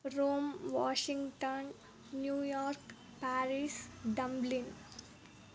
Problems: none marked